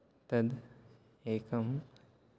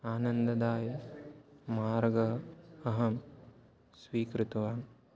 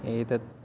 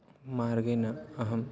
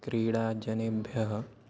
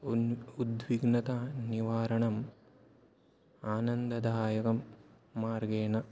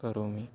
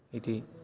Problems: background conversations at intervals